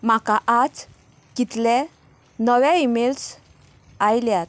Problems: constant background noise